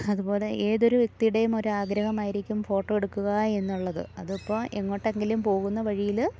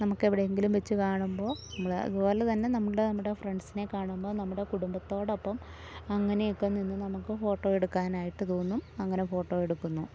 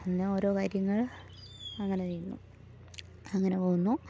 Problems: low volume